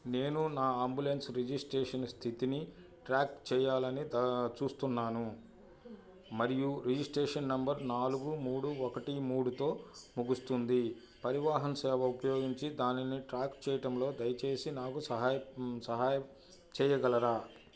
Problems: low volume